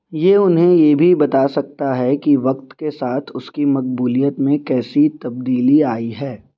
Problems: none marked